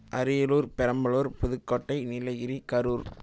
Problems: none marked